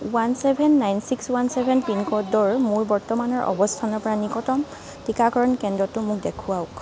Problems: continuous background conversations